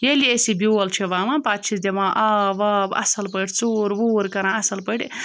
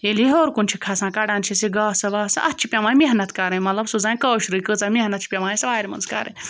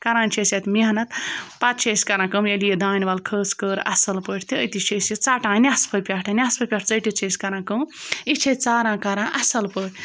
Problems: background sounds at intervals